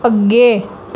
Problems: background sounds at intervals